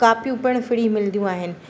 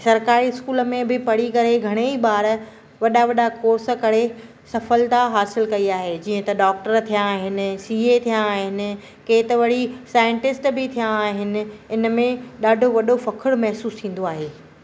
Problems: constant background noise